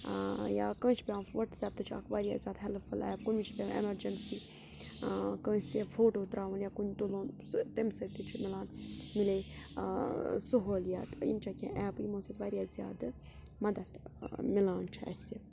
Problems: background sounds at intervals, background conversations at intervals